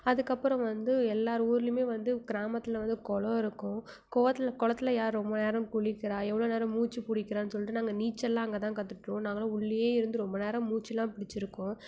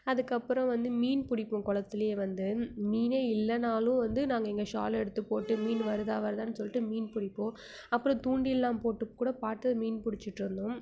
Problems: none marked